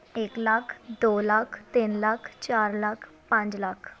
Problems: none marked